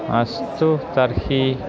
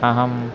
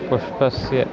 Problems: constant background noise, continuous background conversations